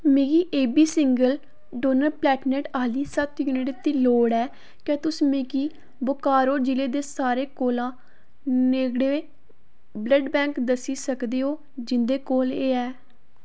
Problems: none marked